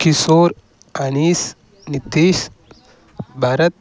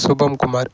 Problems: constant background noise